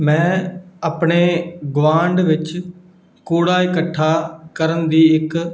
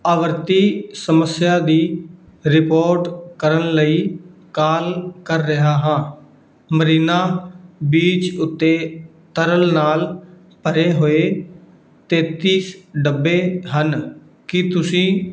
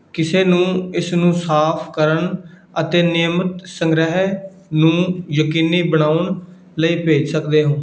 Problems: background sounds at intervals